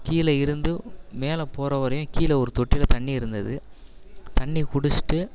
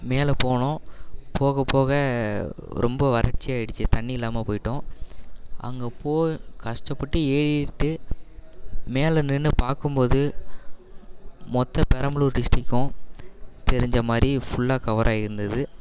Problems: none marked